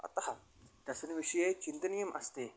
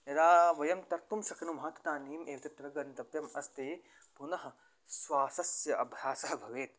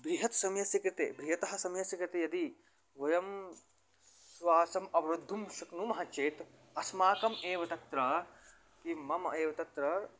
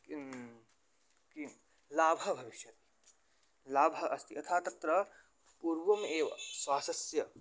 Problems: background sounds at intervals